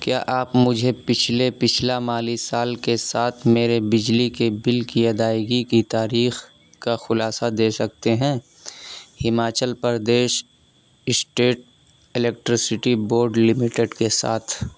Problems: constant background noise